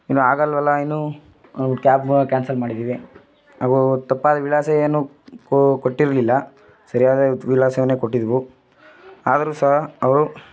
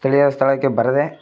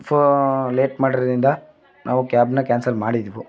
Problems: background sounds at intervals